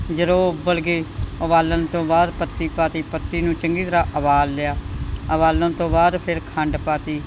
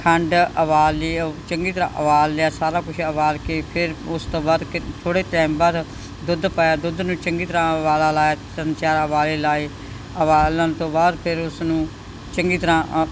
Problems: background sounds at intervals